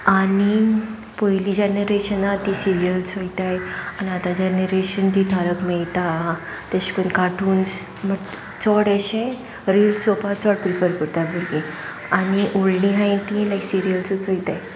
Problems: constant background noise